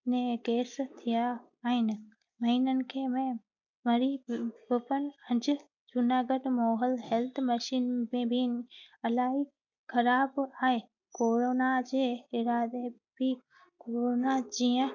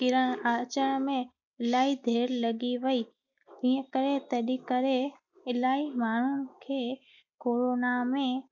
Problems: background sounds at intervals